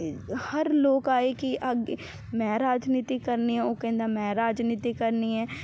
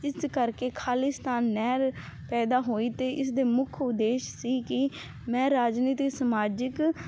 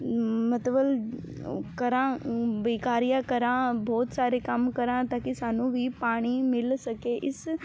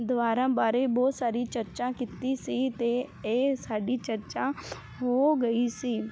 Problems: background sounds at intervals